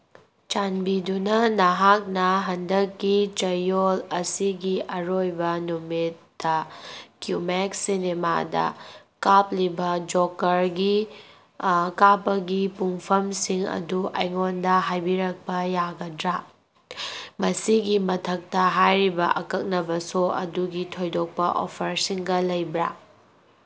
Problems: none marked